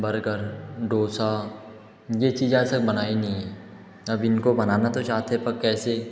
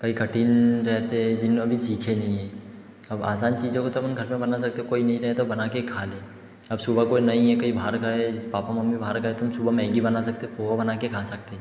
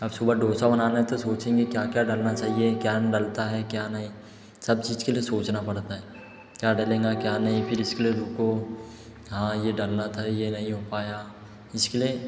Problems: echo